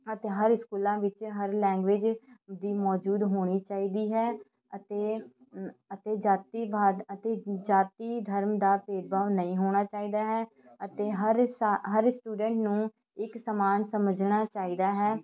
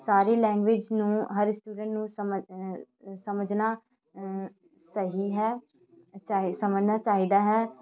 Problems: continuous background conversations